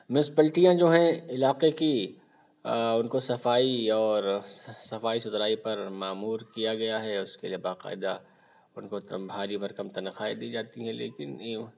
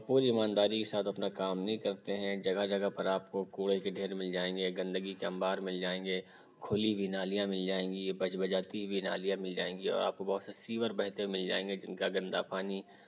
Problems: background sounds at intervals